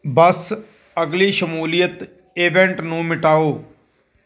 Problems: none marked